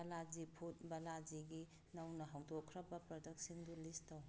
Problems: background sounds at intervals